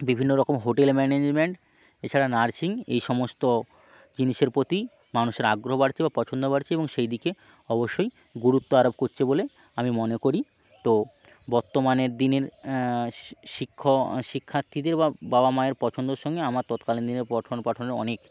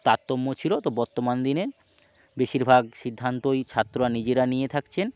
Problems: none marked